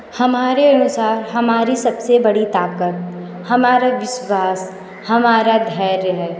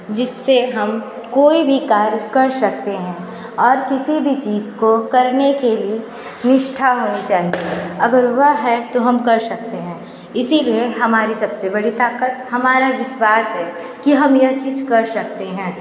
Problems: none marked